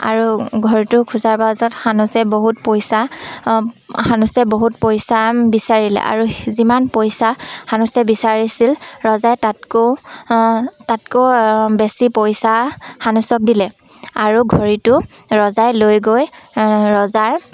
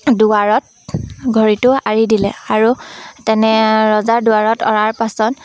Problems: constant background noise, background conversations at intervals